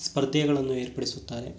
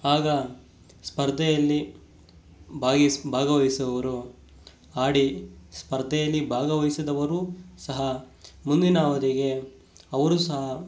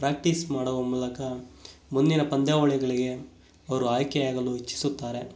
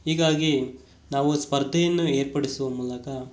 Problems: none marked